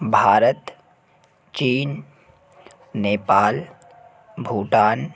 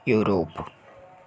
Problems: constant background noise